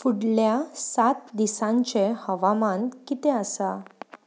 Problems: background sounds at intervals